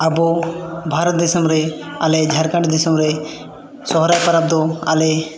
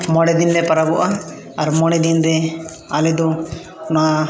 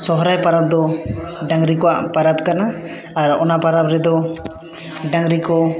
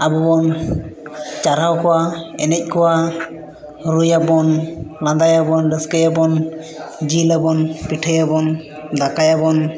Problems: continuous background conversations